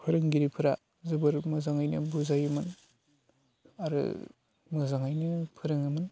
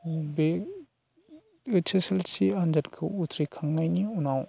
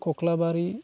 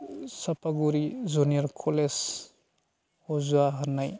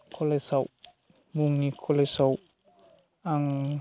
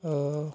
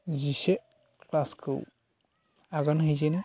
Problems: constant background noise